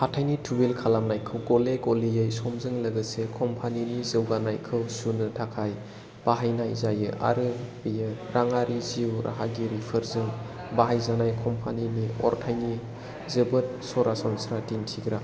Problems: low volume